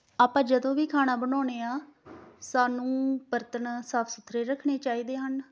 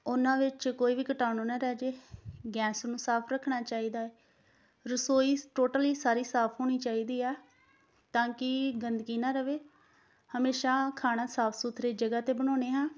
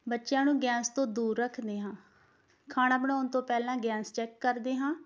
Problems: none marked